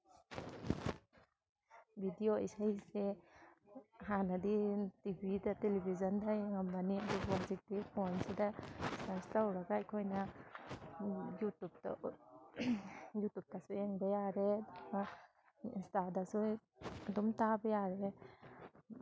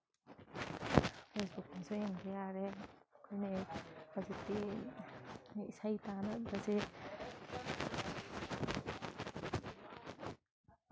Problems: background sounds at intervals, background conversations at intervals